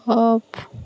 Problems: none marked